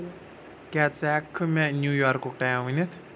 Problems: none marked